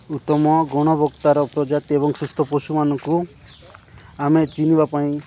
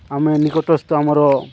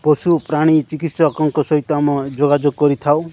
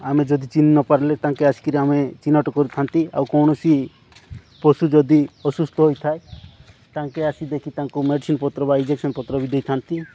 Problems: background sounds at intervals